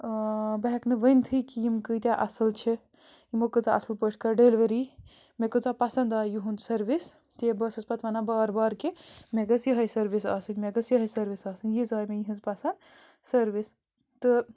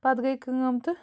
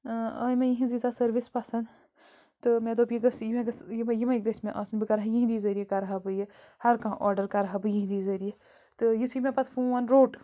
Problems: constant background noise